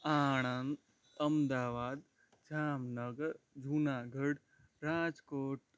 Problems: background sounds at intervals